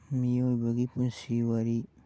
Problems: low volume